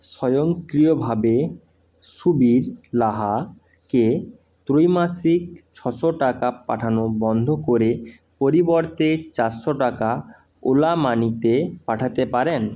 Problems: constant background noise